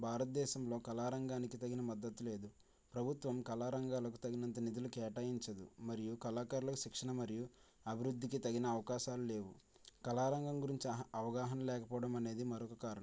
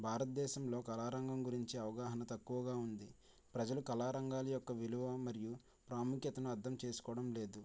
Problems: low volume